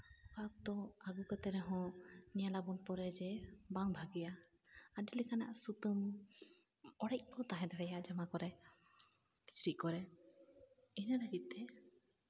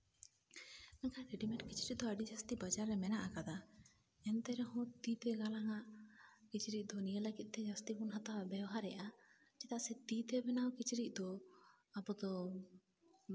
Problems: background sounds at intervals, low volume